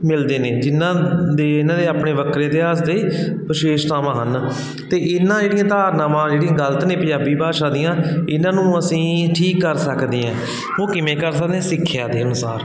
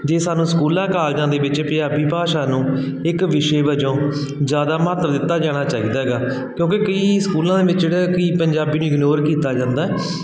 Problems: continuous background conversations